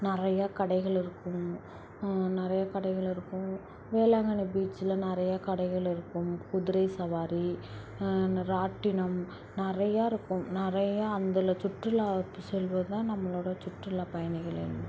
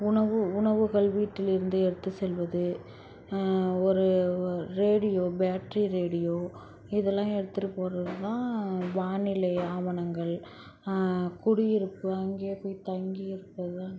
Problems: constant background noise